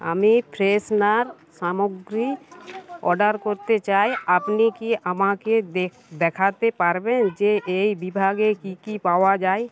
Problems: constant background noise, continuous background conversations